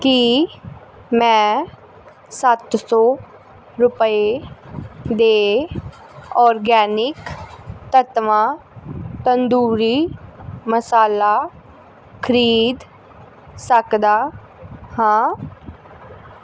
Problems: constant background noise